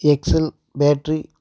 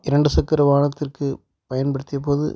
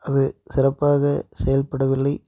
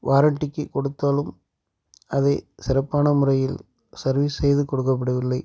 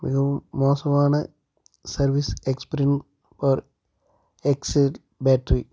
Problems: background sounds at intervals